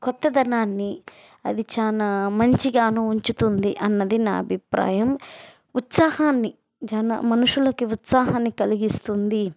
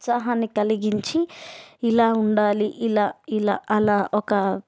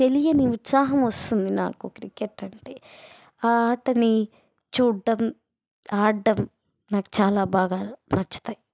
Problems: background sounds at intervals